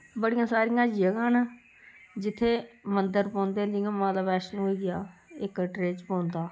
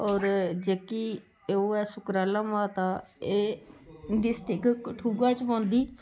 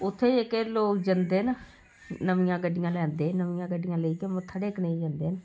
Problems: none marked